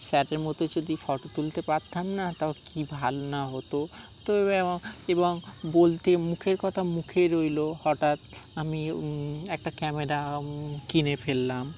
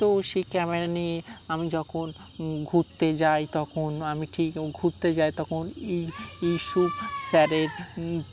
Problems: constant background noise, background conversations at intervals